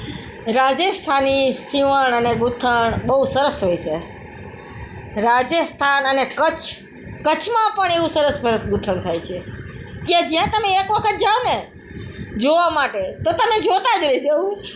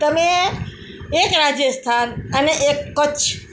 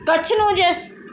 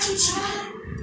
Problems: background sounds at intervals